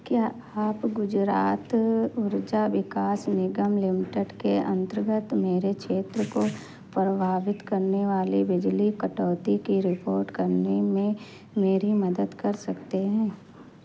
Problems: constant background noise